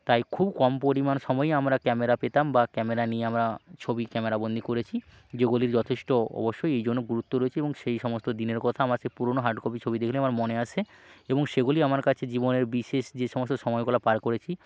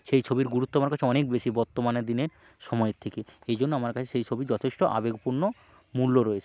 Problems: none marked